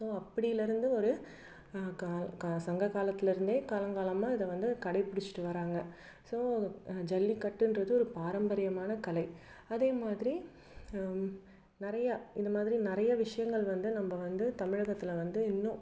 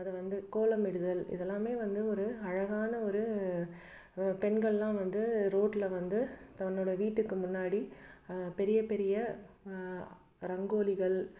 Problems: none marked